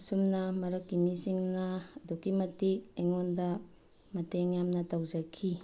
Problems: background sounds at intervals